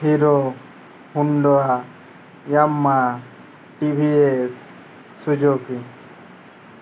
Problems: constant background noise